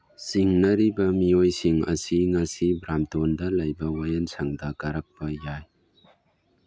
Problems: background sounds at intervals